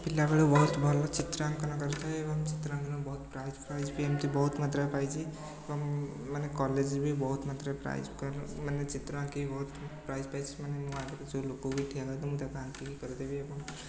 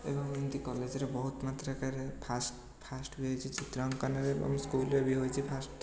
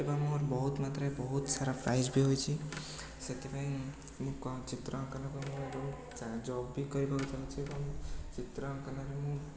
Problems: constant background noise, continuous background conversations